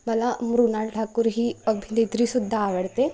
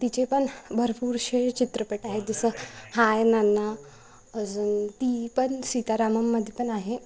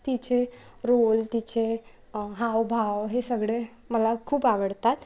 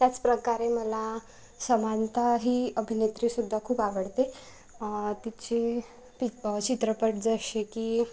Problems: background sounds at intervals